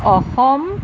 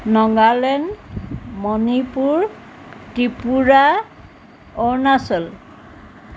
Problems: none marked